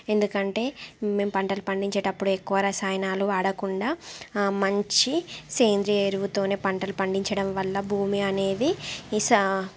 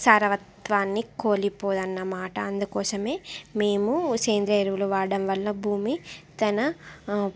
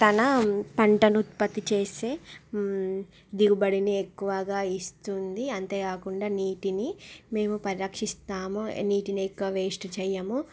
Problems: background sounds at intervals